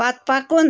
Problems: constant background noise